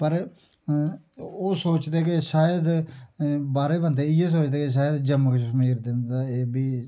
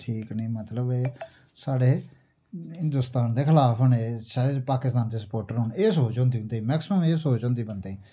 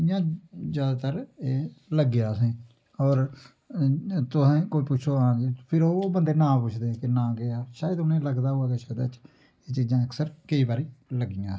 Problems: low volume